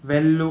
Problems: constant background noise